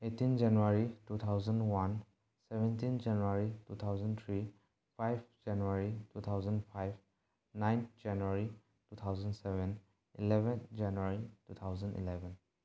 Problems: none marked